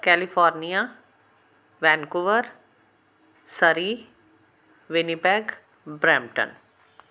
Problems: none marked